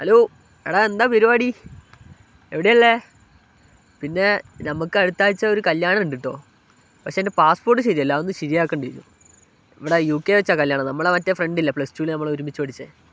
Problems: none marked